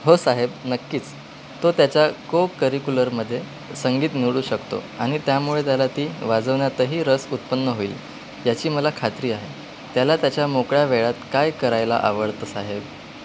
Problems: constant background noise